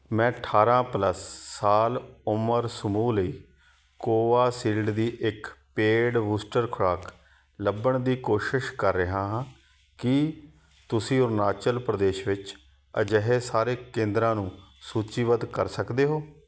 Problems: none marked